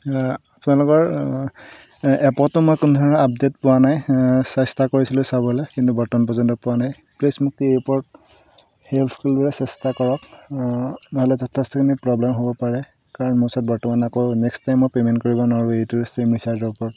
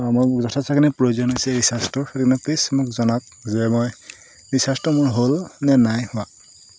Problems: constant background noise